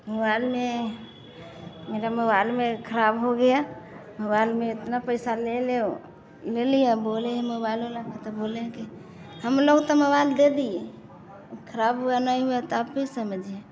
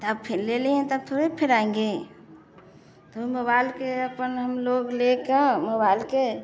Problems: none marked